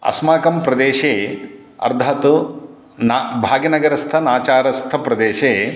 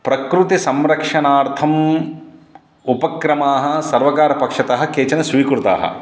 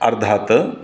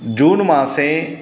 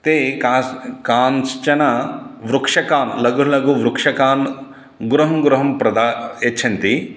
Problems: none marked